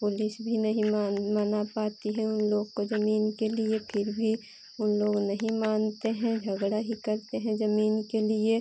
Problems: constant background noise